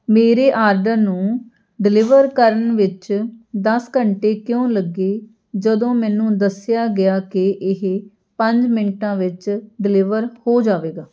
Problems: background conversations at intervals